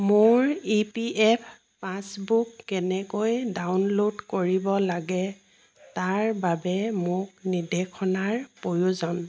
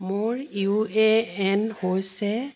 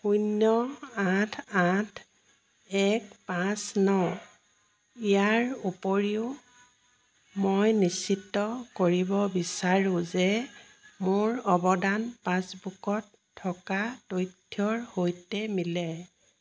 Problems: background sounds at intervals